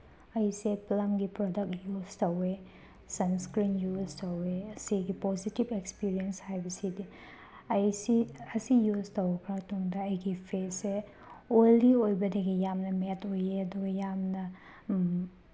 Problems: none marked